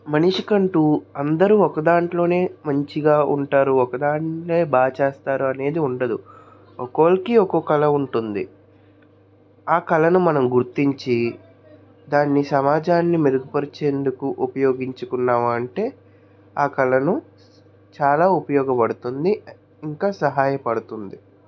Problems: continuous background conversations